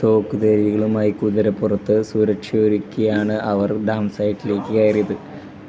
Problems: background sounds at intervals